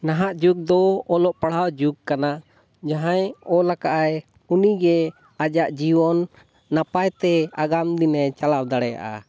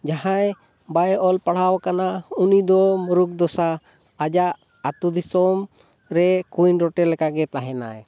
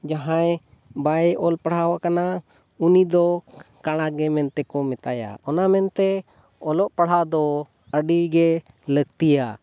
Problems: none marked